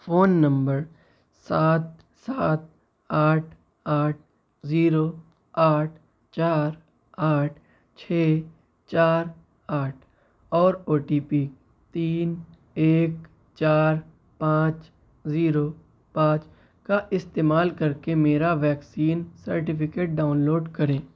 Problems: none marked